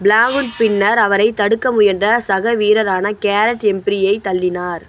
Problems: constant background noise